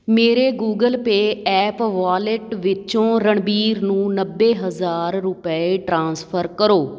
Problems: background sounds at intervals